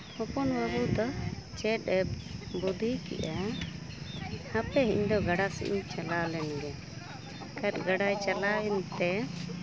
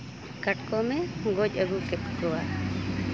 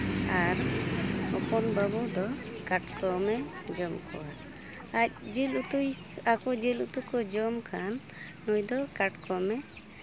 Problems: constant background noise, continuous background conversations